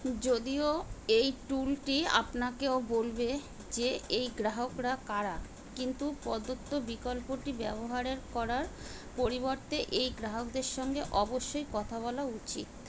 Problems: constant background noise